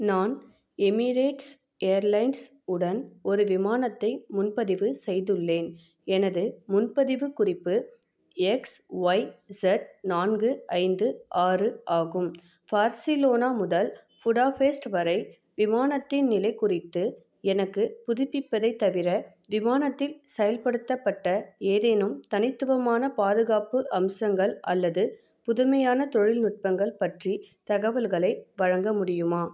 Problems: none marked